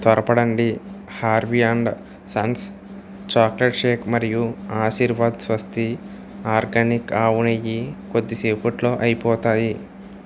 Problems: constant background noise